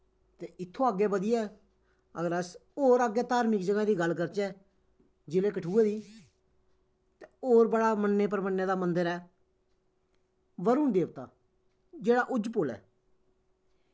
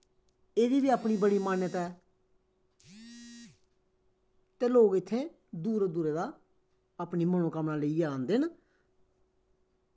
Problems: background sounds at intervals, echo